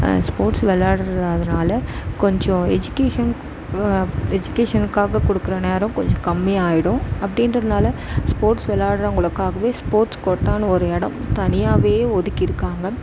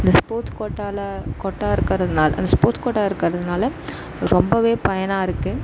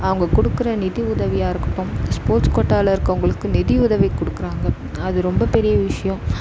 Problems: none marked